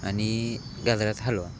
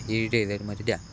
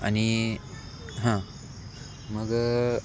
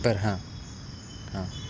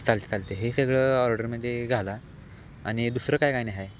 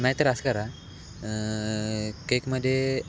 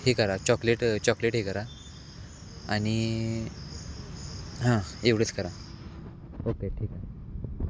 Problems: constant background noise